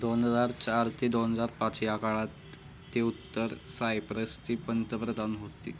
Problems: none marked